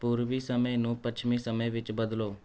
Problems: none marked